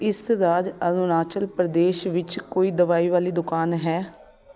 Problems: continuous background conversations